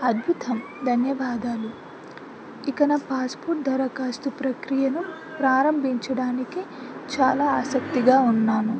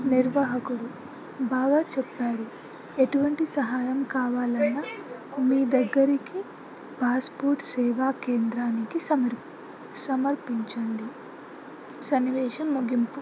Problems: constant background noise, continuous background conversations